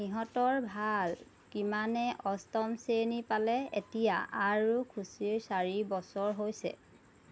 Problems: none marked